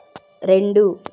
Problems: constant background noise